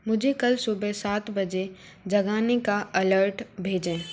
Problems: background sounds at intervals